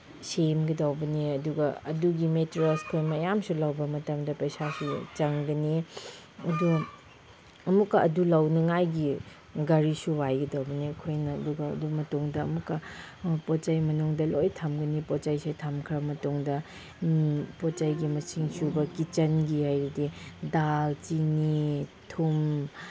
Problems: background sounds at intervals